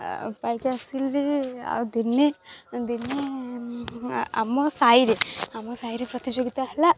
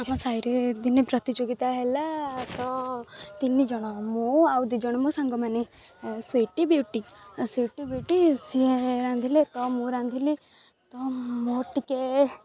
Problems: none marked